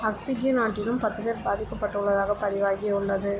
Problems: constant background noise